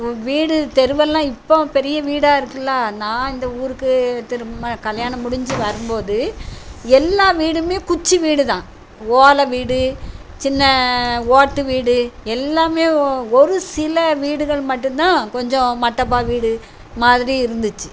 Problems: none marked